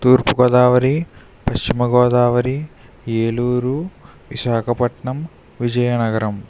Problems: constant background noise